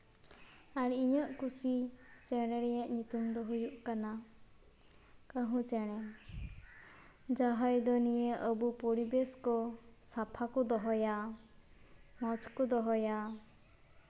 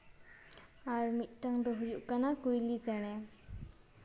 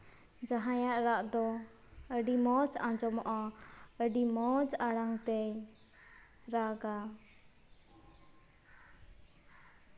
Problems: background sounds at intervals